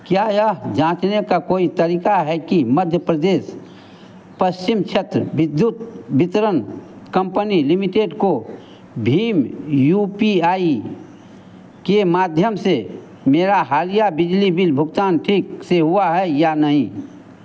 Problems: constant background noise